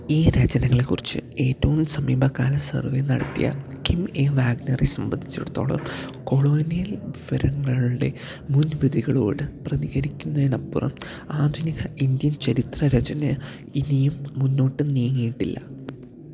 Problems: none marked